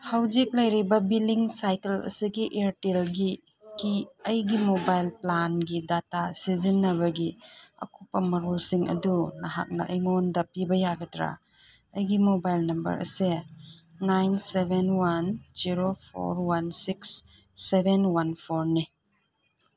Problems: none marked